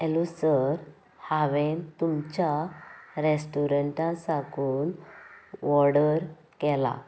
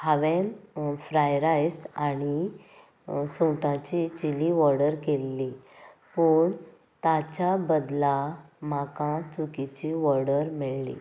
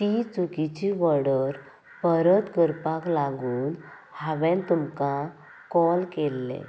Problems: constant background noise